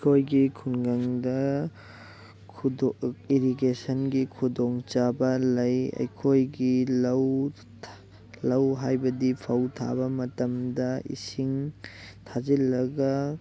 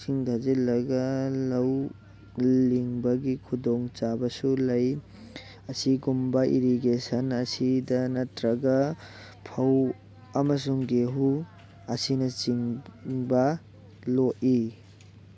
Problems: constant background noise